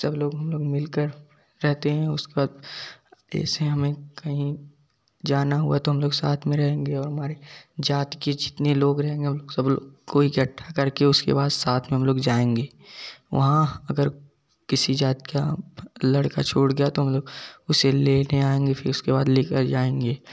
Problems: none marked